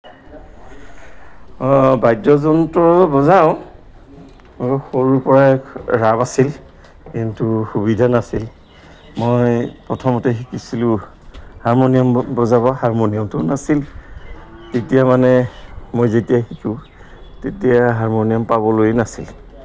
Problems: constant background noise